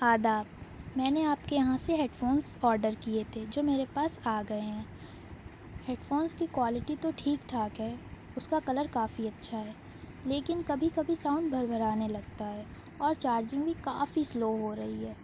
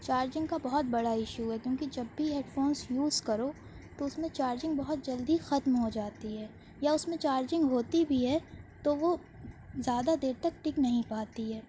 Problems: none marked